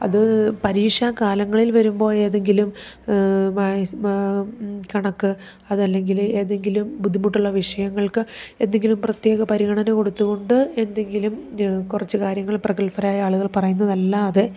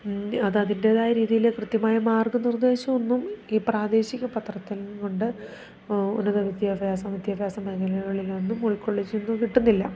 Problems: none marked